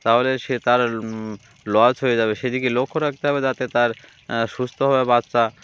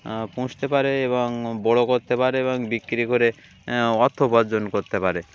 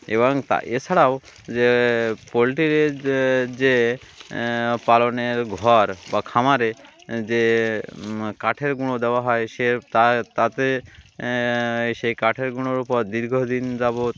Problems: none marked